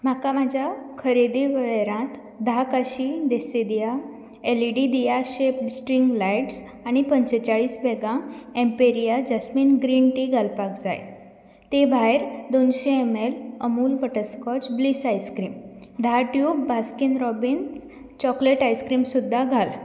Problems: background sounds at intervals